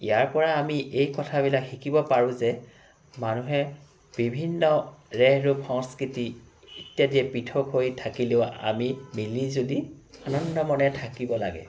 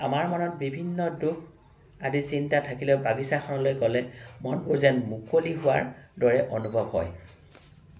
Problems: background sounds at intervals